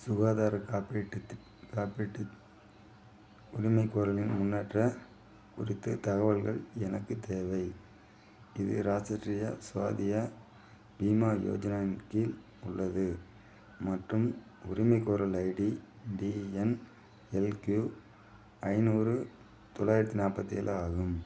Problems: low volume